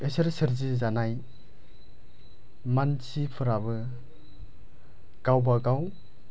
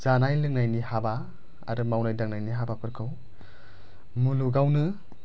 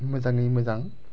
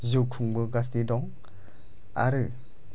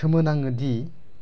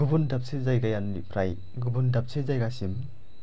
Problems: none marked